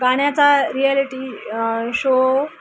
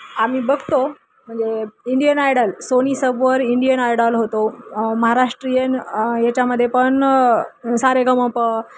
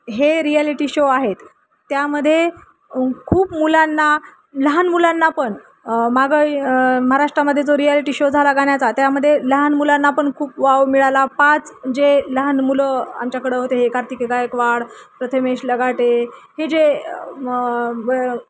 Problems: none marked